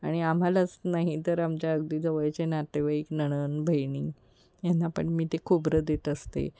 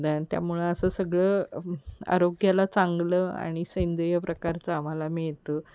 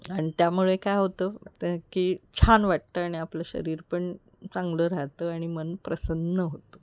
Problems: none marked